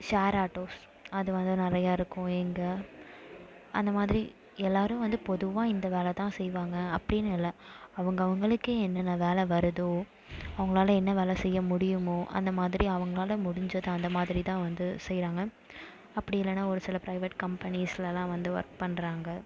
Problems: background sounds at intervals